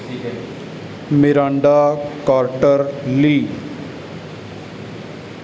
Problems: background sounds at intervals